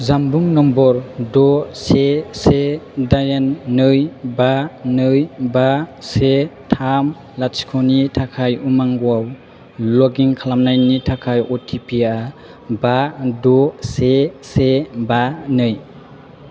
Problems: constant background noise